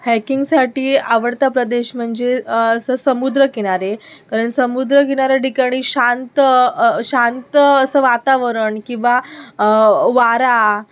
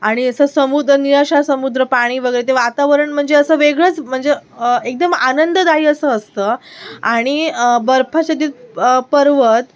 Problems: background sounds at intervals